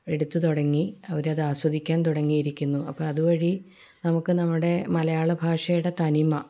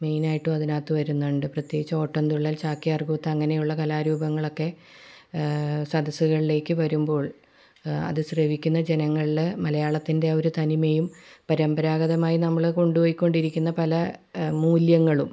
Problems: low volume